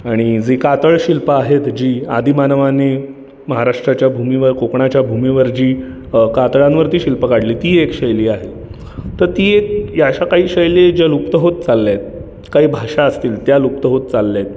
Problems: none marked